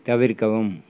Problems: none marked